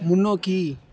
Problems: background conversations at intervals